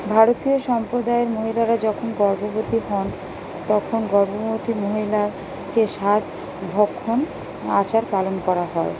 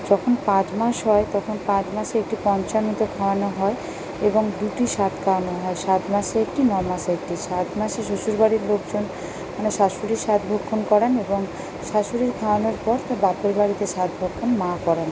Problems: constant background noise